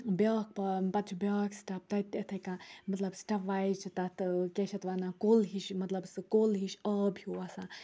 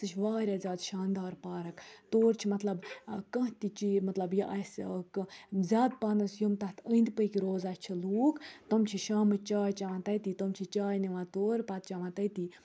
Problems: low volume